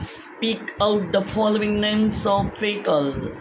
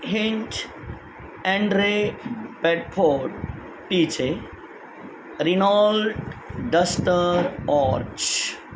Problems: constant background noise